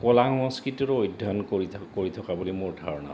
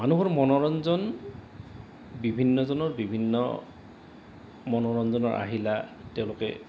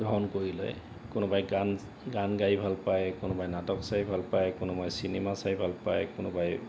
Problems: none marked